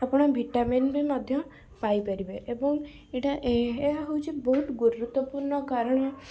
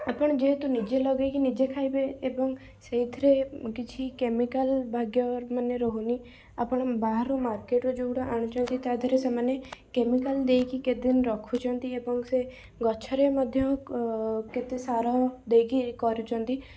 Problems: background sounds at intervals